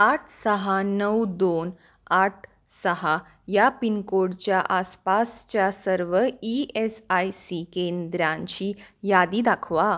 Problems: none marked